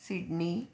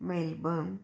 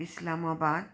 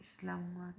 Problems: constant background noise, background conversations at intervals